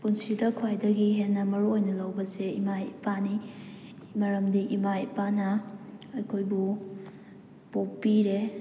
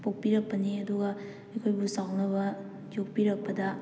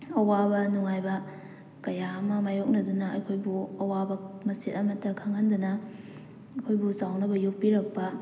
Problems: background sounds at intervals